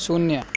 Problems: background sounds at intervals